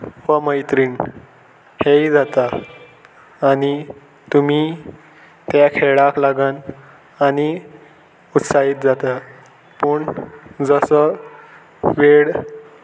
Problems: constant background noise